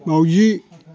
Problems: none marked